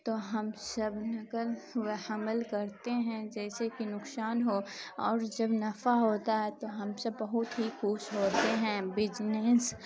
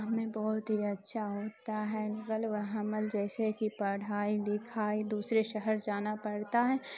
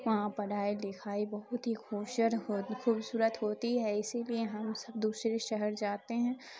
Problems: constant background noise